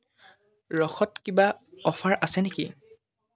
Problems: constant background noise